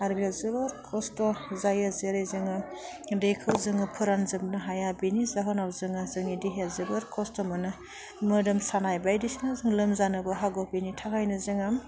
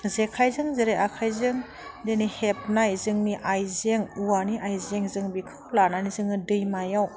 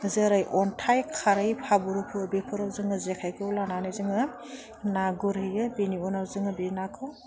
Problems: none marked